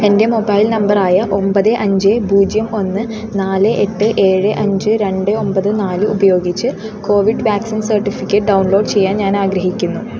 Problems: constant background noise